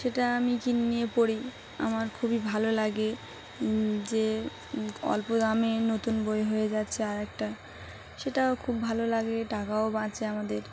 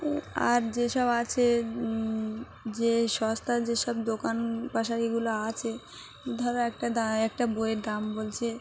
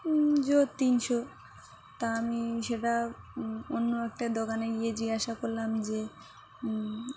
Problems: none marked